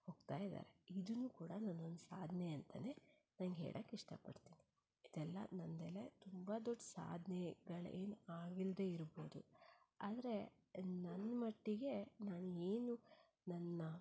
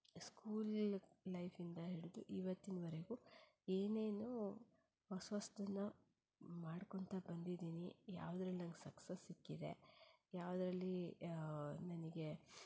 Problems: low volume